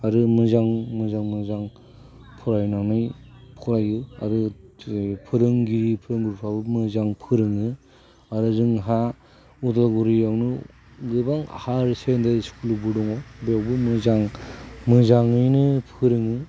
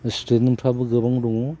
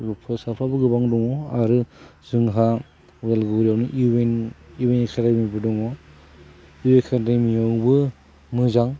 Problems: constant background noise